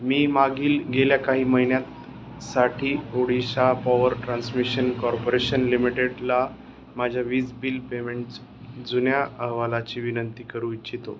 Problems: constant background noise